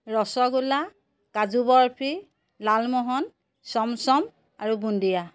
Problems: none marked